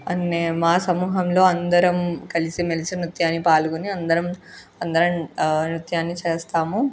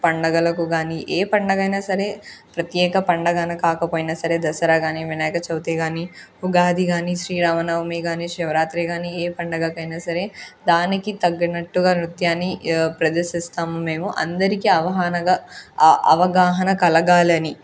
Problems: none marked